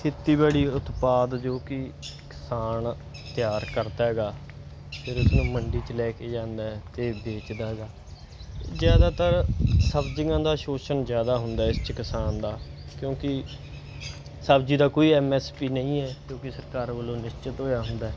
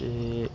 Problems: background sounds at intervals